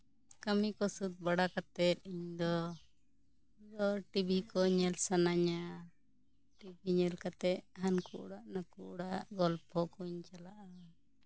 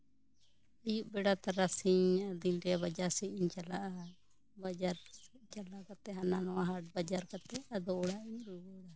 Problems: continuous background conversations